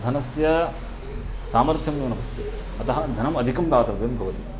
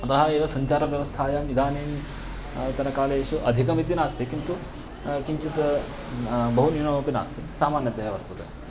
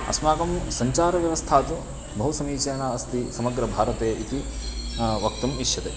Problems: constant background noise